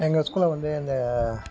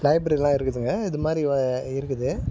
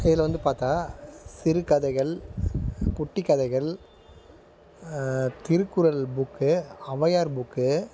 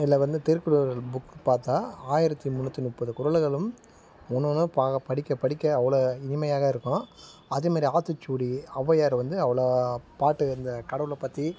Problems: constant background noise